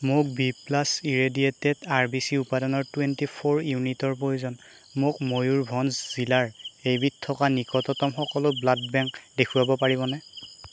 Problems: constant background noise